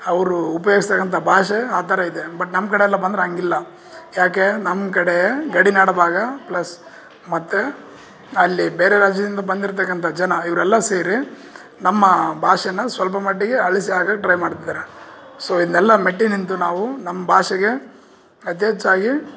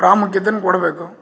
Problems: none marked